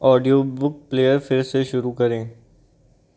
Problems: none marked